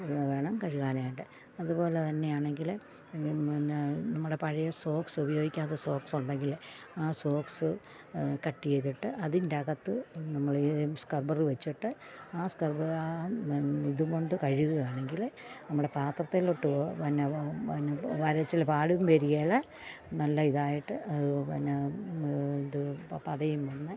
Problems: background sounds at intervals, low volume